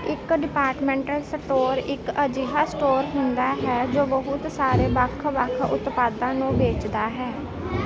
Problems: continuous background conversations